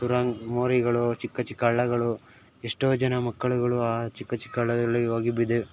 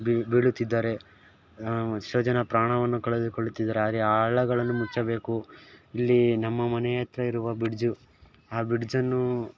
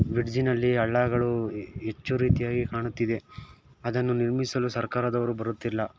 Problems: background sounds at intervals